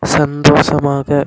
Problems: none marked